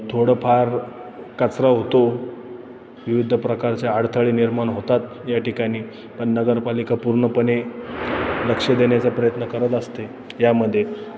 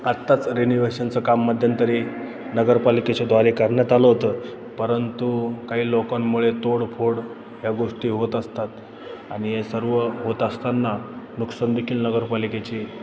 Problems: none marked